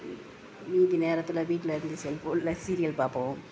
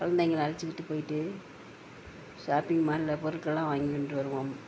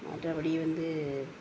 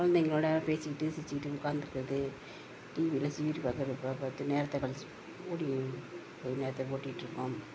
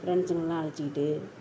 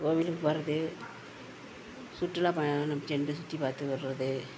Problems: constant background noise